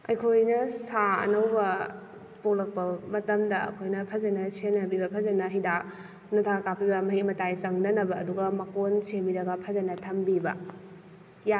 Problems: none marked